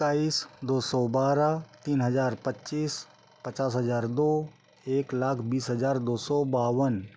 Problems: background sounds at intervals